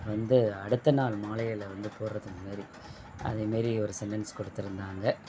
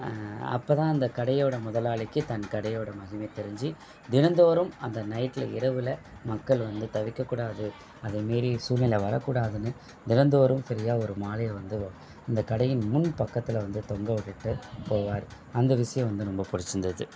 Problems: background sounds at intervals